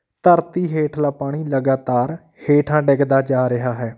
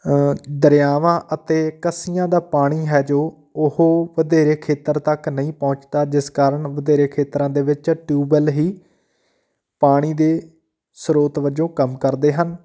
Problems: none marked